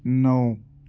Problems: none marked